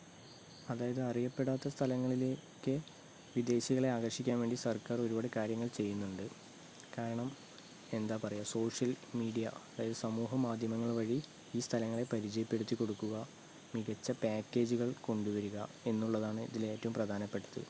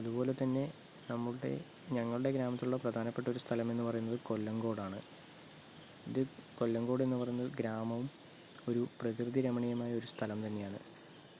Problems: low volume